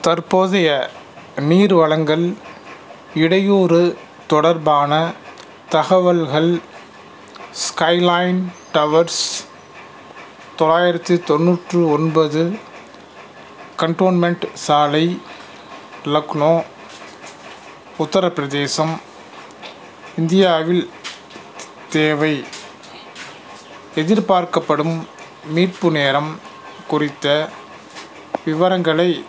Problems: background sounds at intervals